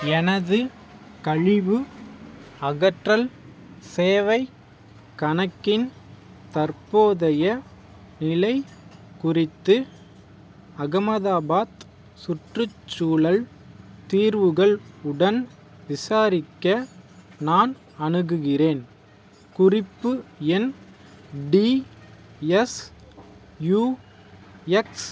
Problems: background sounds at intervals